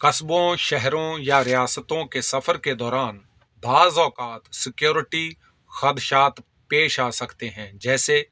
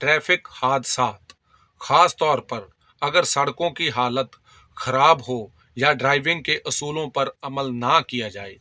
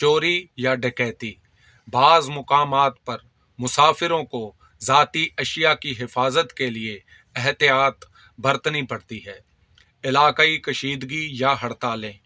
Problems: constant background noise